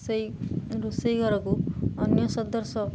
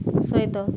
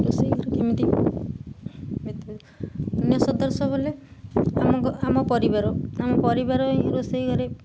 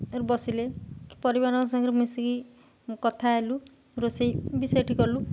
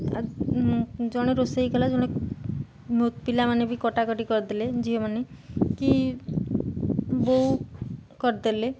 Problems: none marked